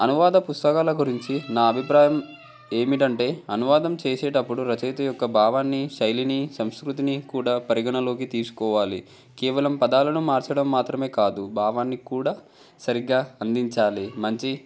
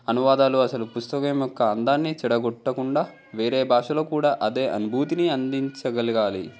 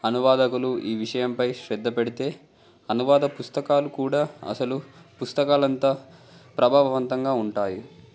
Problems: background conversations at intervals